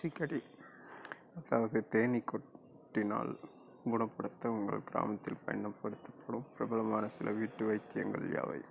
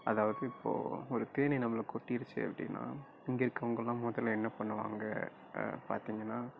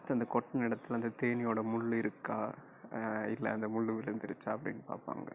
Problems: low volume